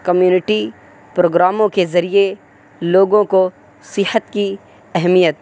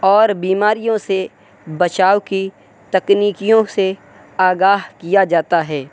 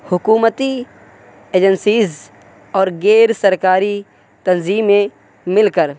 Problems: constant background noise